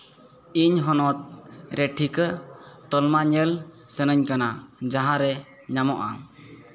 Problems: background conversations at intervals